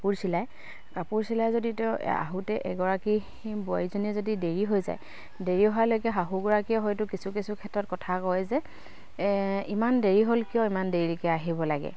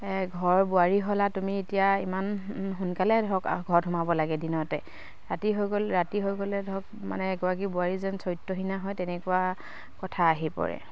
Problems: none marked